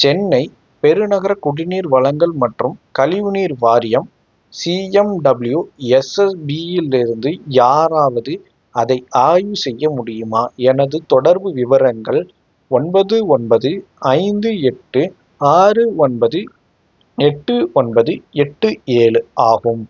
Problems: background sounds at intervals